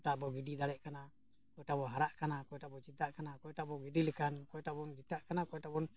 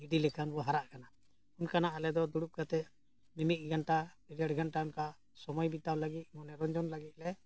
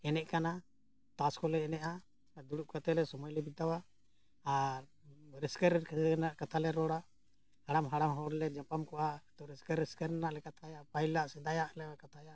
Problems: none marked